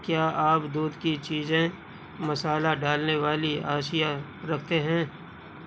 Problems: none marked